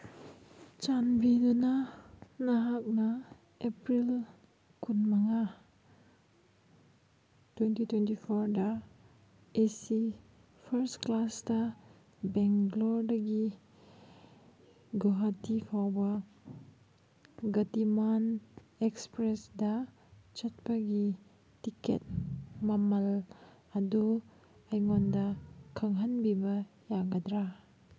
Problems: background sounds at intervals